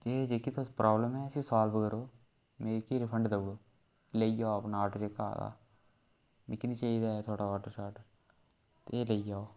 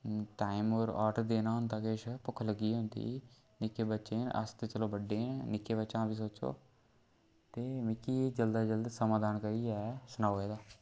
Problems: background sounds at intervals